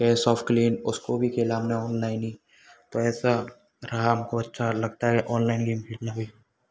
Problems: background sounds at intervals